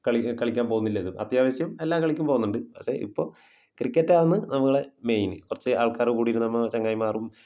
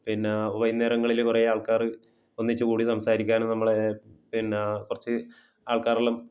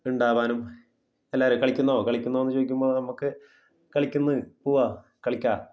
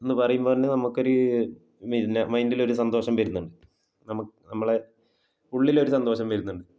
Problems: low volume